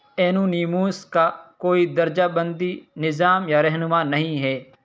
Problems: none marked